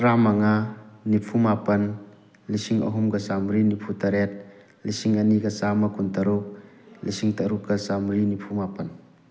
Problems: background sounds at intervals